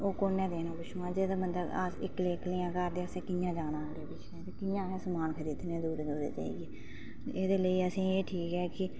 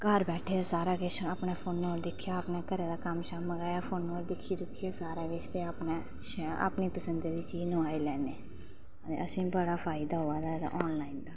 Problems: none marked